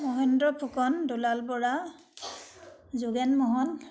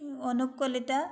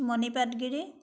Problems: none marked